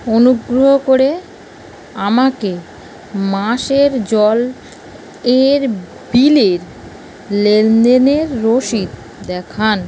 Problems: constant background noise